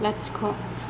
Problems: constant background noise